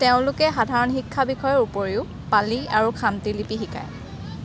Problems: none marked